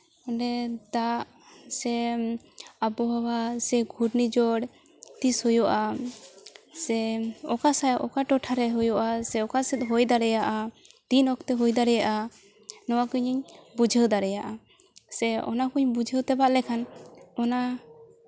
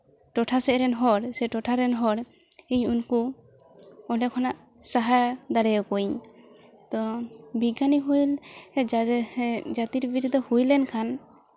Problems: background sounds at intervals